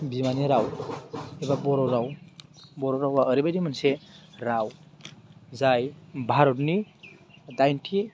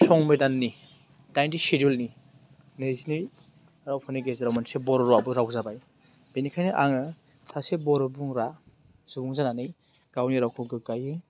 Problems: none marked